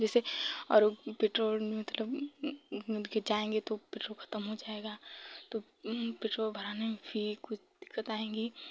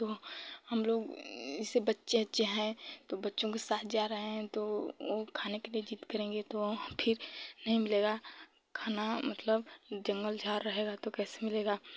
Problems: low volume